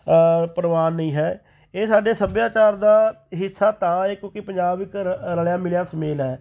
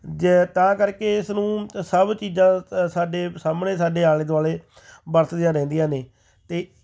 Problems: none marked